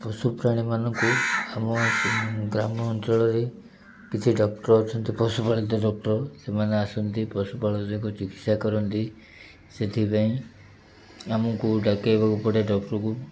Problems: background sounds at intervals